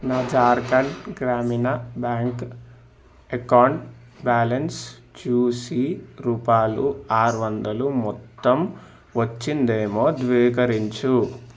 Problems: background sounds at intervals